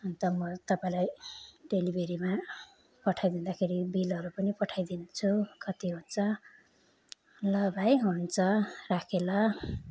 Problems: none marked